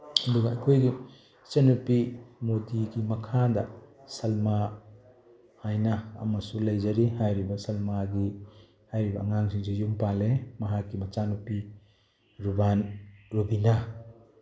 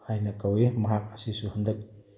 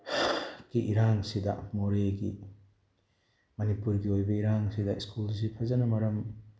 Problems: background conversations at intervals